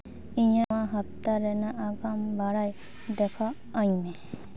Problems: none marked